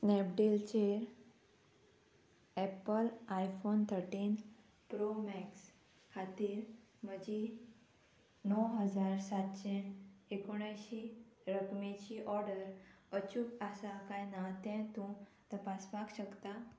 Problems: constant background noise